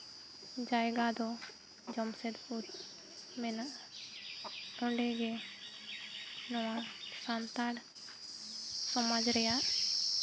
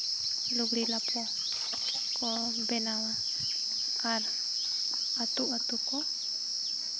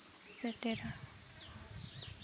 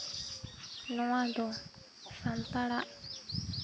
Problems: none marked